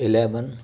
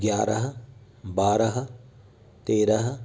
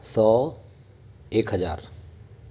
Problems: constant background noise, background conversations at intervals